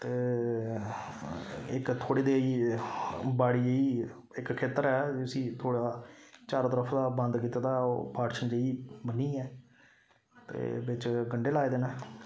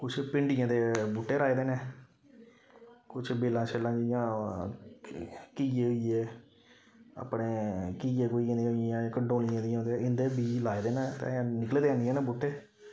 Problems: none marked